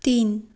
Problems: none marked